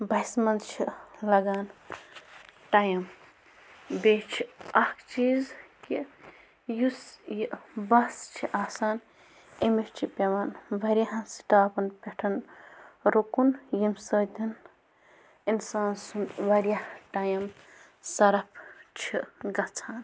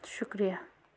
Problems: constant background noise